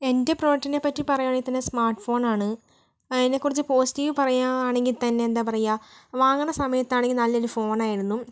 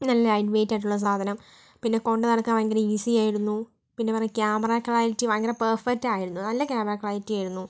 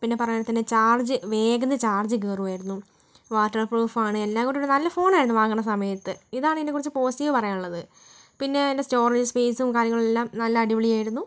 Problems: background sounds at intervals, low volume